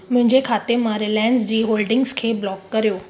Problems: echo